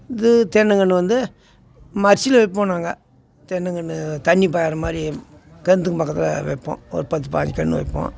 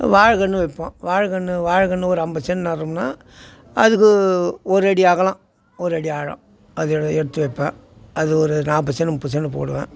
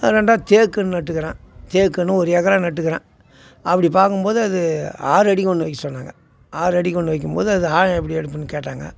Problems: constant background noise